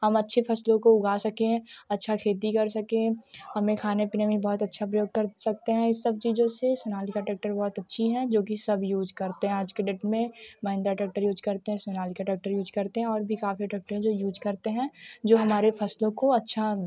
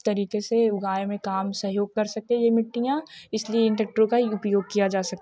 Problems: constant background noise, continuous background conversations